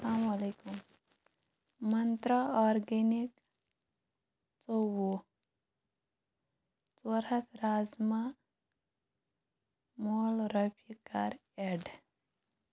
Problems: low volume